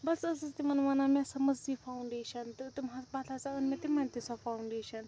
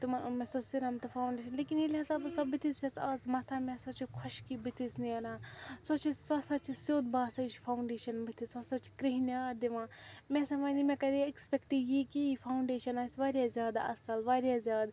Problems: constant background noise, low volume